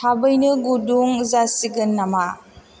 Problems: none marked